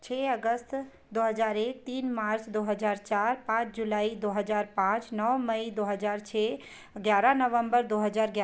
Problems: none marked